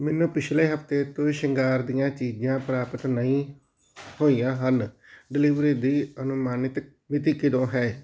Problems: background sounds at intervals